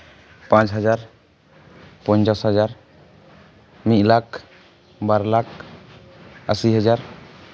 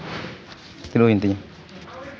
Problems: none marked